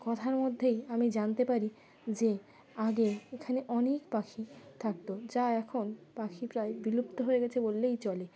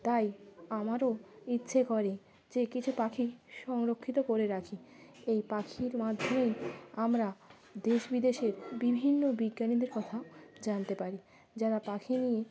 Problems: constant background noise, continuous background conversations